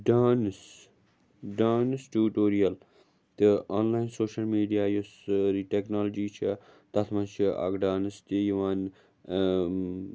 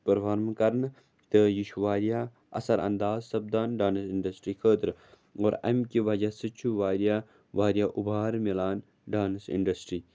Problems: none marked